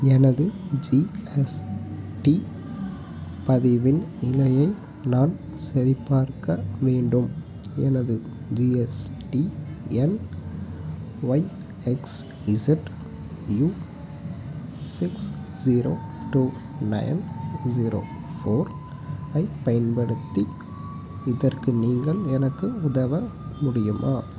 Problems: background sounds at intervals